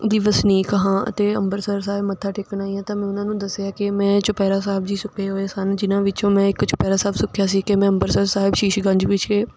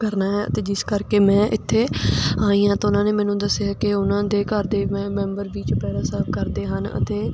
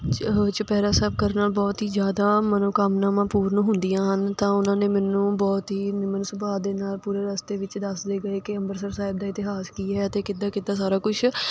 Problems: constant background noise